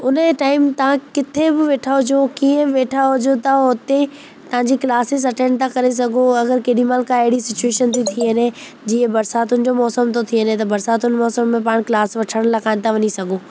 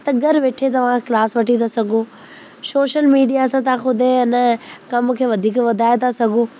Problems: constant background noise